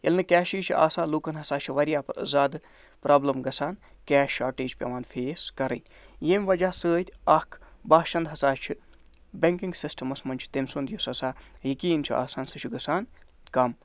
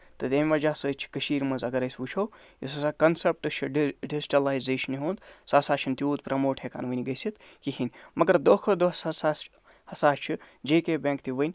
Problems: none marked